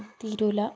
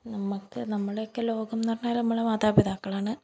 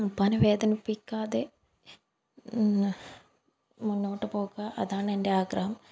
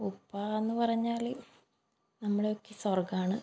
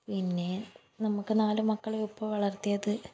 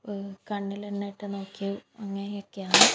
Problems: background sounds at intervals